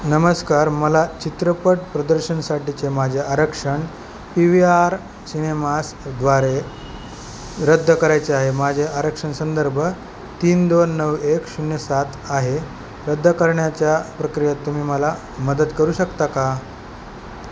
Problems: constant background noise